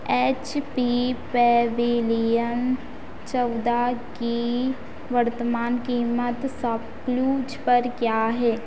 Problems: constant background noise